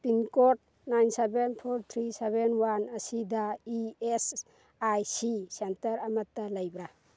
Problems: none marked